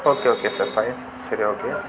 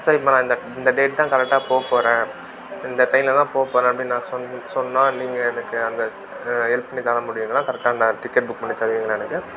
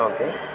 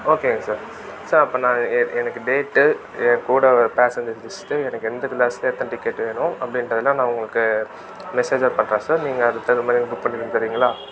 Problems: constant background noise